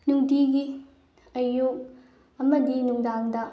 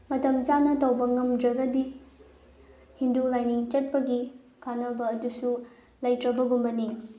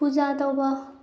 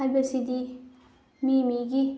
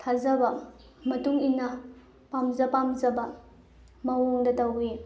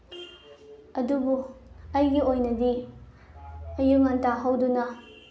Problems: low volume